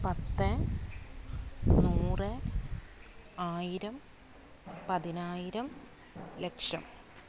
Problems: constant background noise, low volume